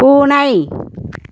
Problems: background sounds at intervals